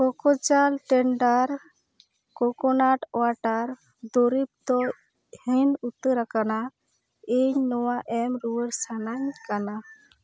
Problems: background sounds at intervals